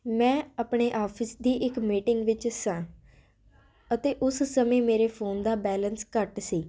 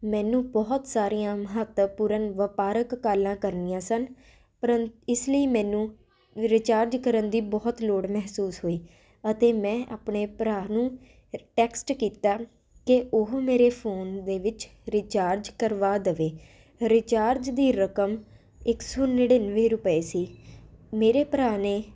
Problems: constant background noise